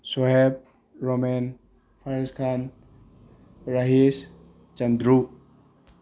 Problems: background sounds at intervals